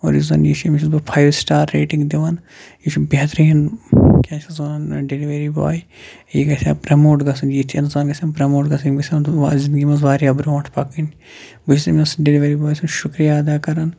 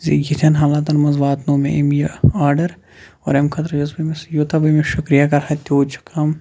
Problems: background sounds at intervals